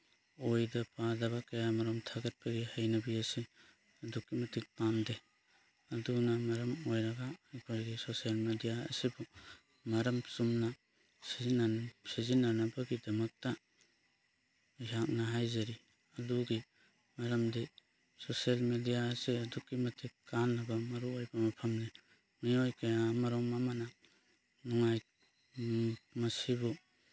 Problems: background sounds at intervals